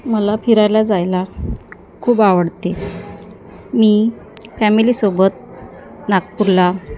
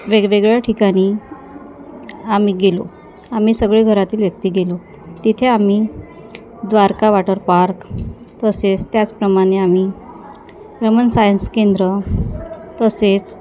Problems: constant background noise, continuous background conversations